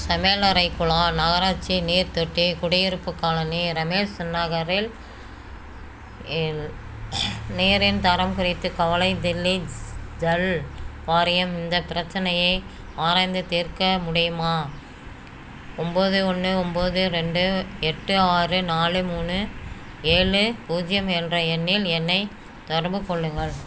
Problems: none marked